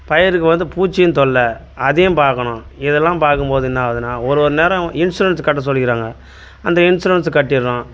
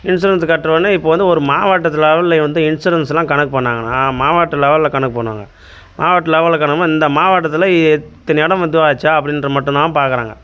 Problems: none marked